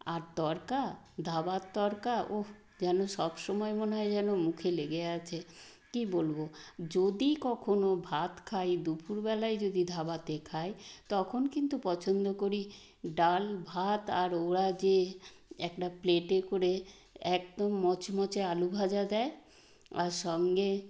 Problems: constant background noise